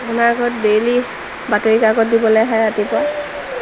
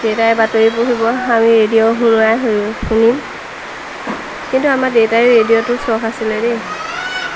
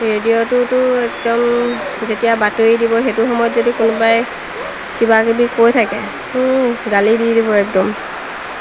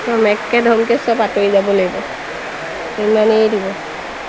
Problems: constant background noise, background conversations at intervals